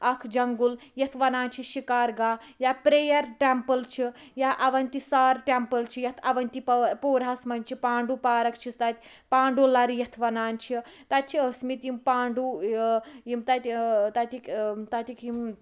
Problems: background sounds at intervals, background conversations at intervals